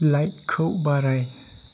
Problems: constant background noise